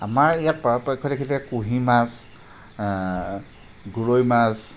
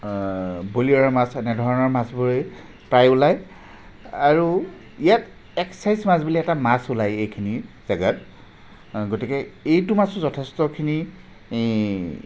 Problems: constant background noise